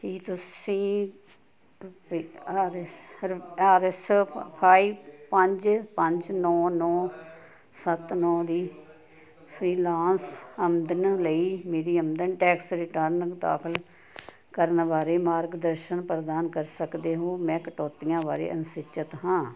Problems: continuous background conversations